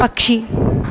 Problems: background sounds at intervals